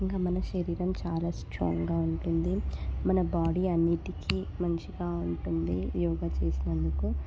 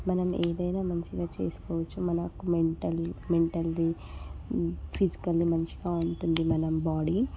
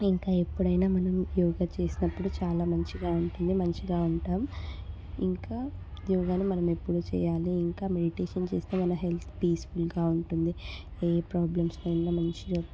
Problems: background conversations at intervals, low volume